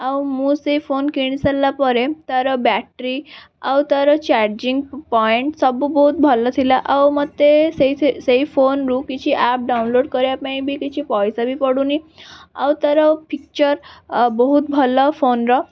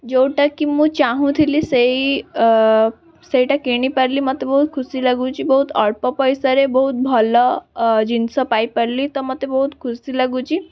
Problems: background sounds at intervals, background conversations at intervals